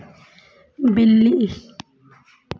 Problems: background sounds at intervals